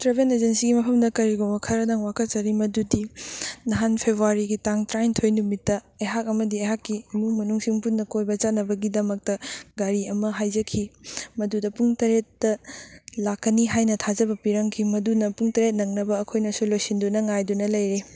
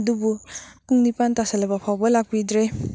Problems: none marked